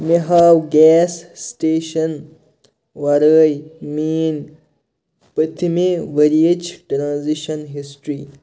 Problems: none marked